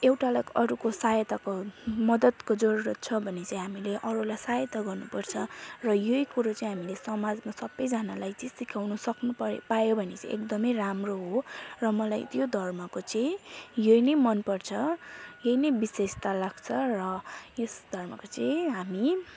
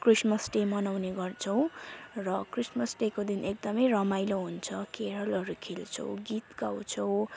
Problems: constant background noise